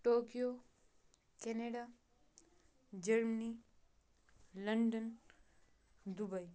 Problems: none marked